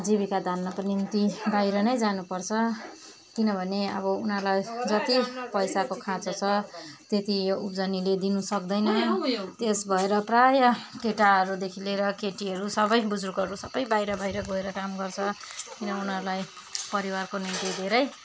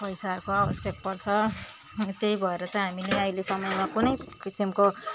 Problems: background sounds at intervals